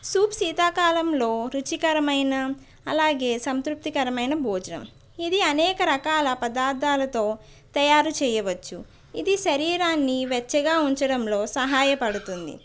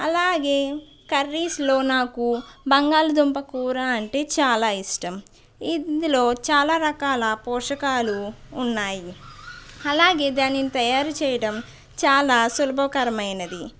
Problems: background conversations at intervals